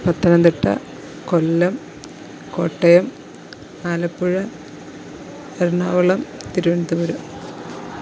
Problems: constant background noise, low volume